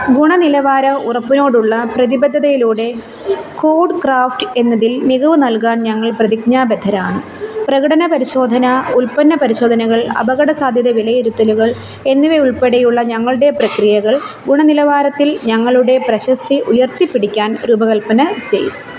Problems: background sounds at intervals